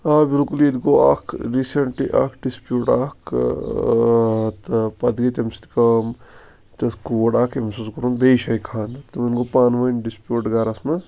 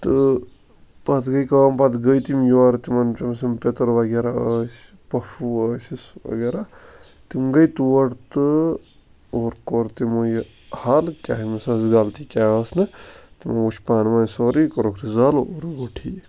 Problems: background sounds at intervals